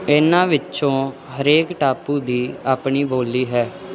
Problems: none marked